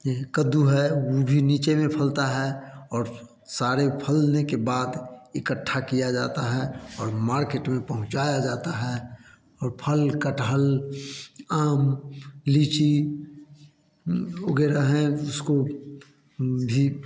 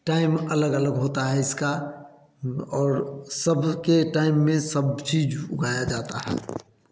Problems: constant background noise